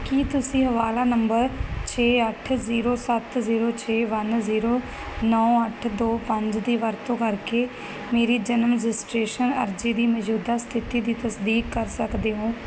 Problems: background sounds at intervals